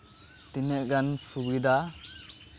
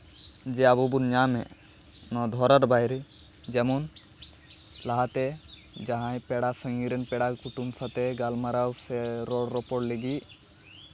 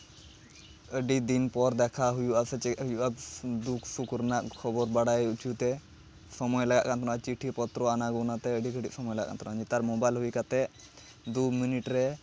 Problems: constant background noise, background conversations at intervals